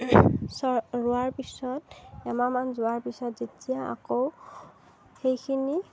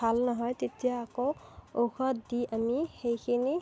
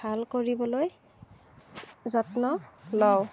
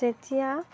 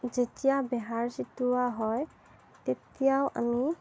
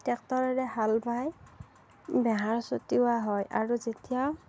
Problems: none marked